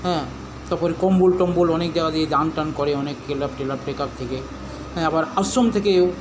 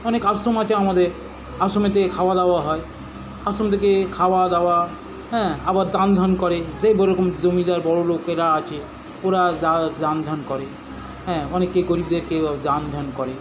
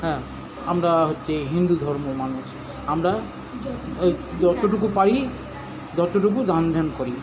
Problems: background conversations at intervals